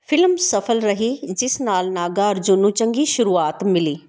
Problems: none marked